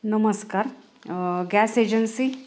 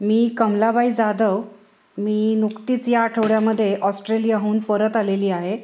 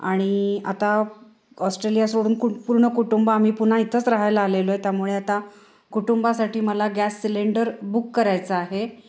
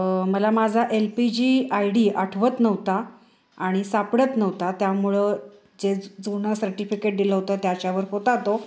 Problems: none marked